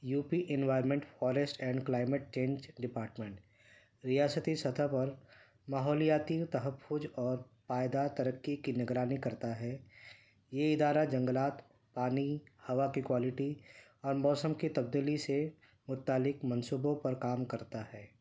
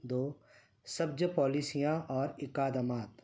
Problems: none marked